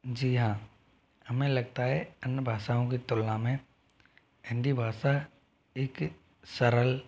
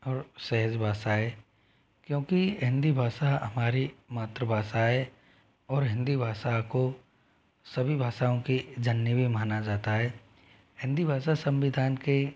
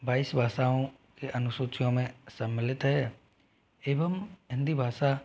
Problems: none marked